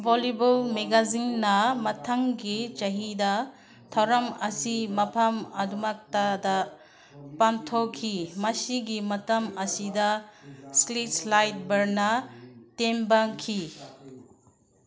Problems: background sounds at intervals, background conversations at intervals